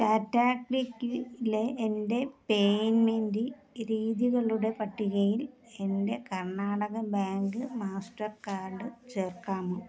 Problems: background conversations at intervals, low volume